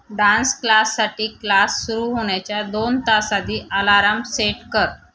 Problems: background sounds at intervals